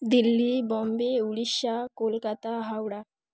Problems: none marked